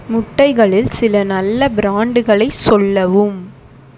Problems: constant background noise